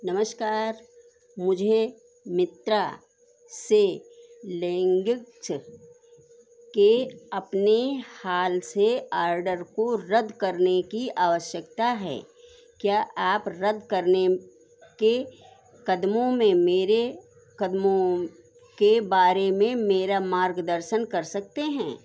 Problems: constant background noise